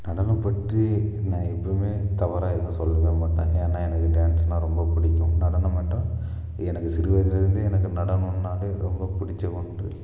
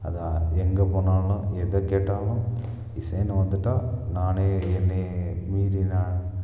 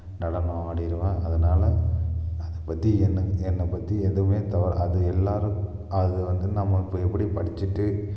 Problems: echo